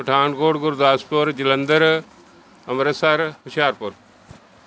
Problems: background sounds at intervals